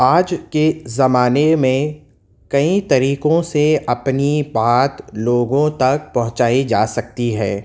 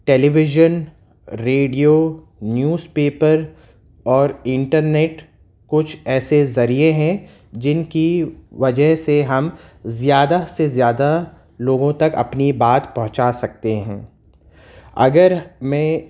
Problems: constant background noise